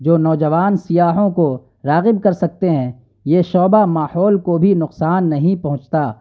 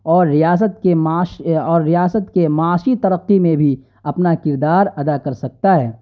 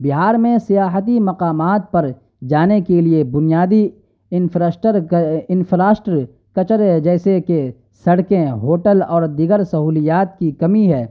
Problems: none marked